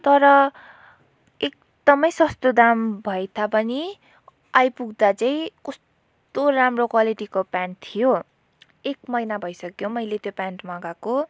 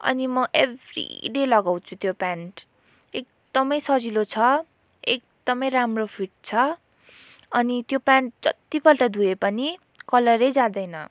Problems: none marked